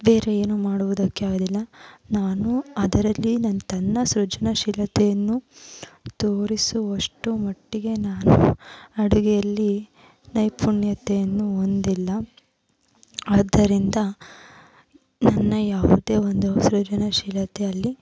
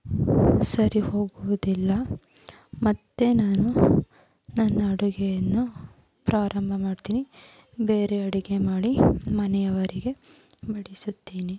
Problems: background sounds at intervals